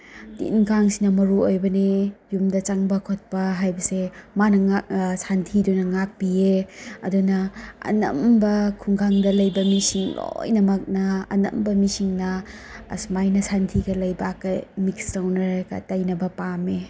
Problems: background sounds at intervals